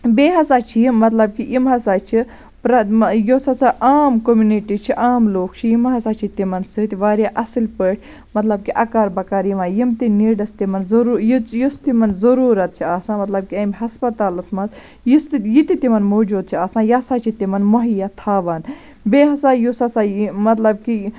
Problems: constant background noise